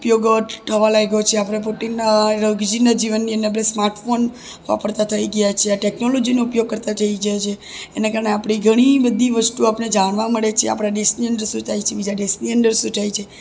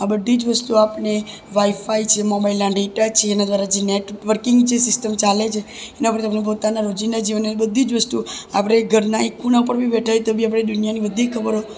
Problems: none marked